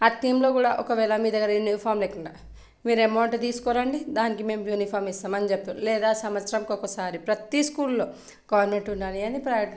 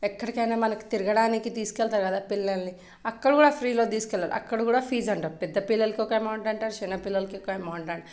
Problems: none marked